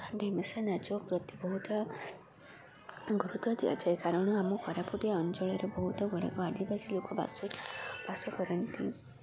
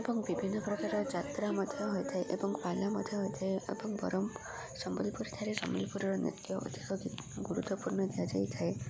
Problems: constant background noise, continuous background conversations